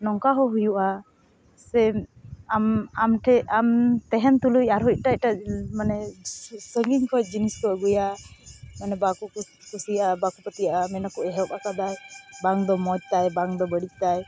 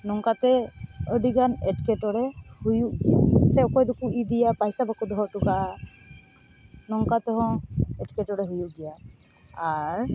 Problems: constant background noise